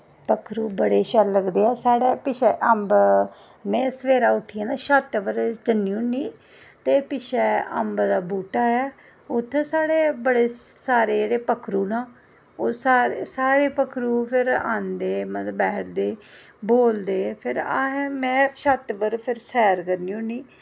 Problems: none marked